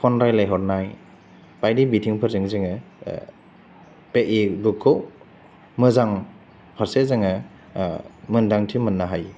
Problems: none marked